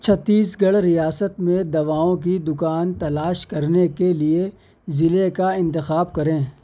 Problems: none marked